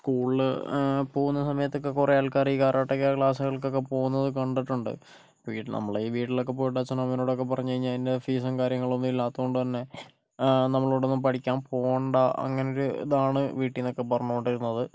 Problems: none marked